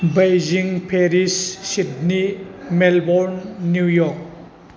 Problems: background sounds at intervals, background conversations at intervals